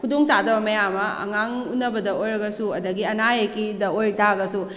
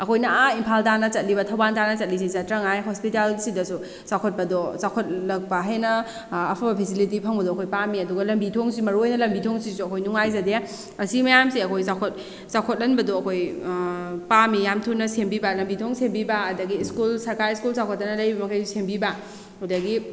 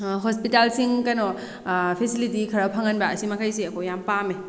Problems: none marked